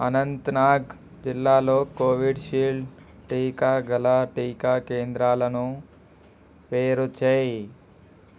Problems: constant background noise